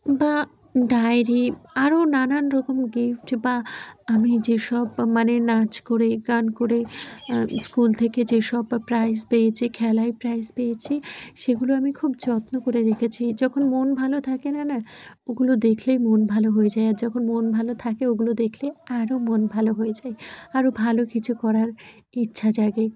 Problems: none marked